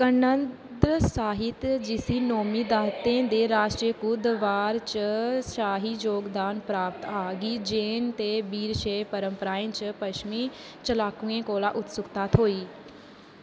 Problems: constant background noise, background conversations at intervals